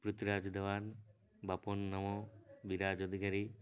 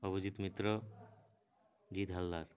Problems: low volume